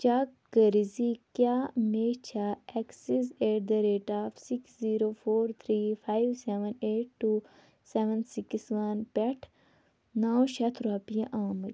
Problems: background sounds at intervals